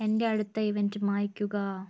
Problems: low volume